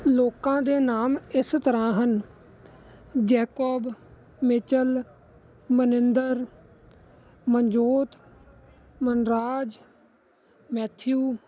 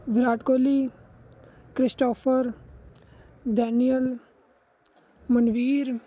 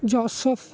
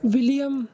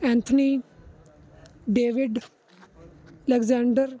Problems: constant background noise